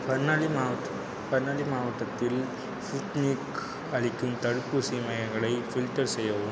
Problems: constant background noise